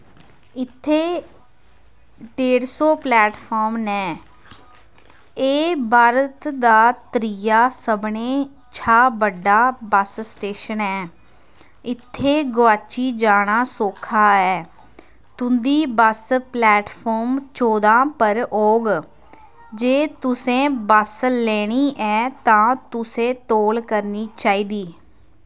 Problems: constant background noise